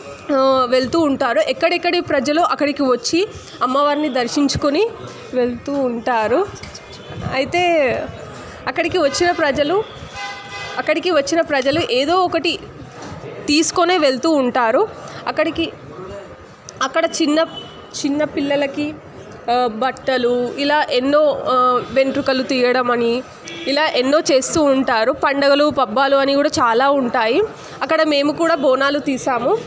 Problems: constant background noise, background conversations at intervals